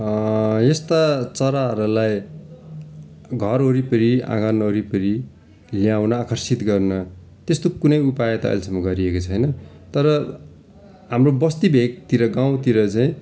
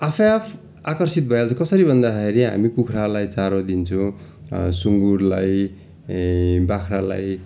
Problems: constant background noise